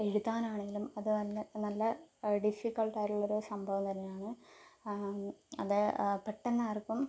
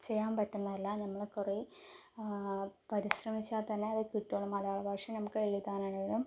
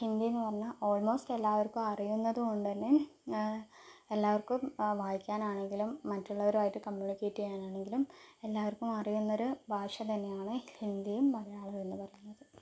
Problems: low volume